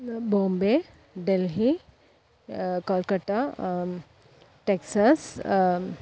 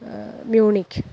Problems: low volume